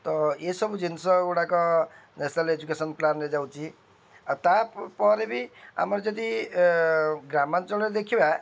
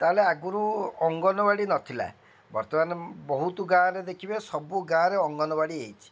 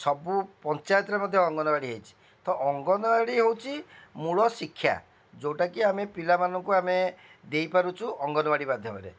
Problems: none marked